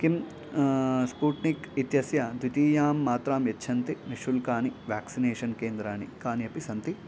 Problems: background sounds at intervals